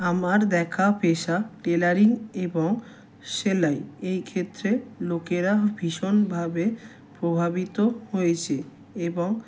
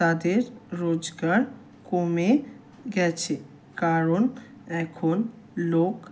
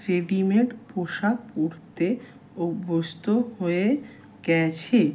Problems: constant background noise